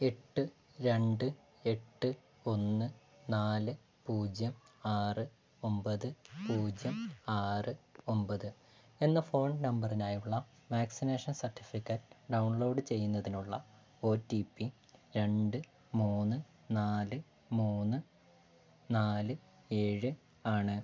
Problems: none marked